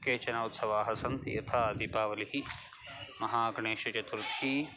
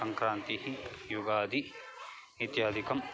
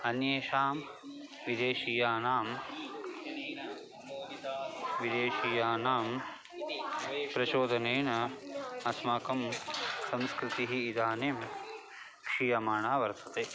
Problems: constant background noise, continuous background conversations